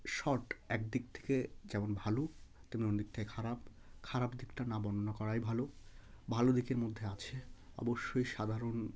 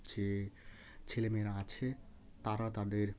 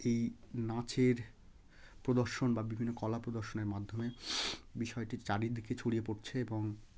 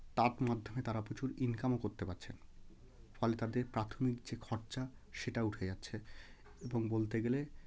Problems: none marked